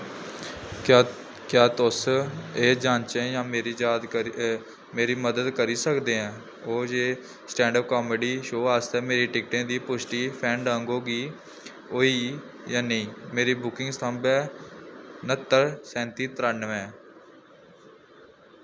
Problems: constant background noise